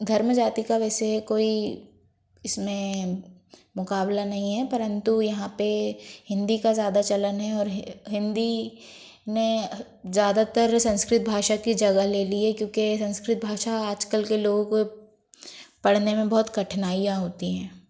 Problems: background sounds at intervals